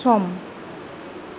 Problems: none marked